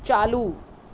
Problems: constant background noise